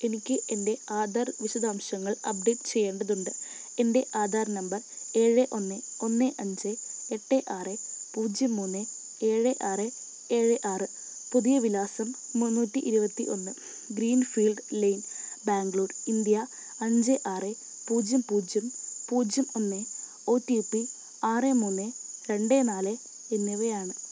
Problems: none marked